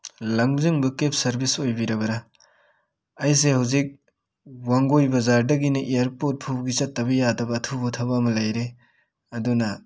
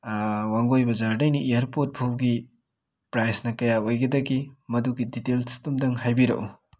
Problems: none marked